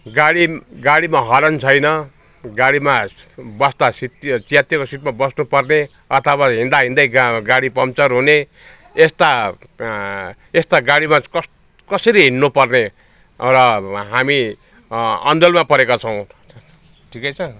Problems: background conversations at intervals